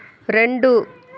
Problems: constant background noise